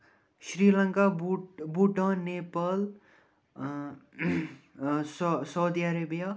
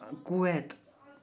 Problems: none marked